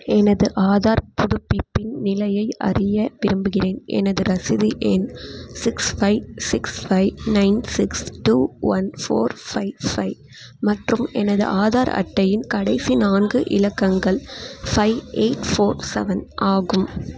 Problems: constant background noise